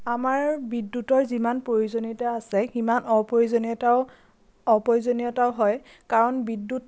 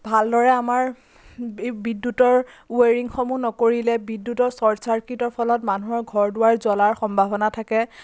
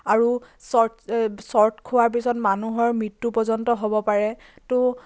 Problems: constant background noise